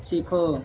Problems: none marked